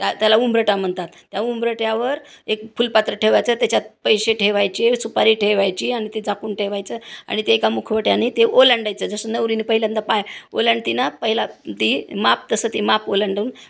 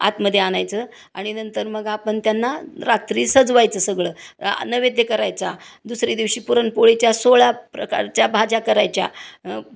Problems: constant background noise